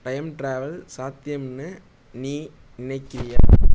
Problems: background sounds at intervals